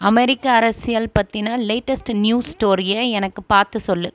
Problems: none marked